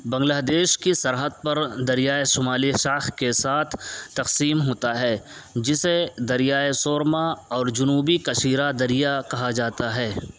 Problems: constant background noise